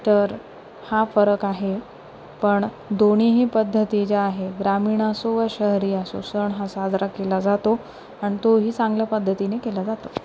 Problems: none marked